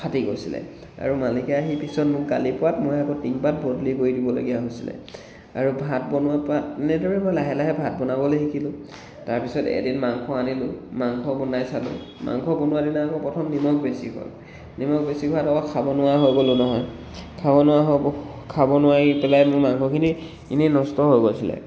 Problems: none marked